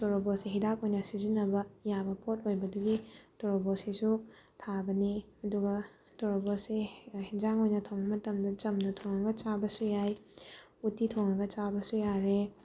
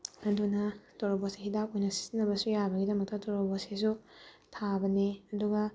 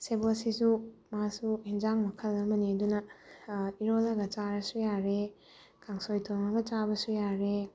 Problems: background sounds at intervals